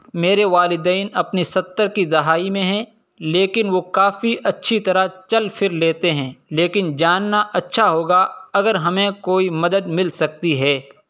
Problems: none marked